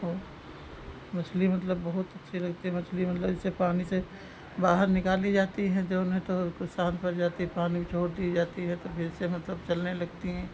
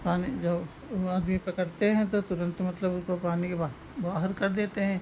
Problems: none marked